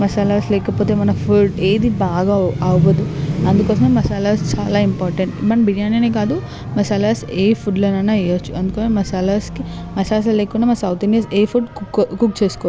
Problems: constant background noise, background conversations at intervals